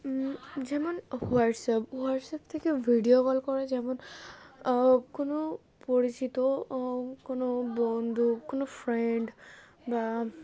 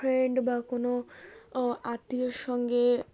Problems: constant background noise